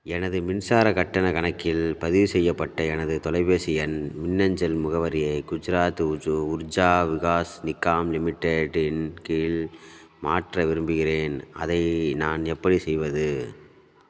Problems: none marked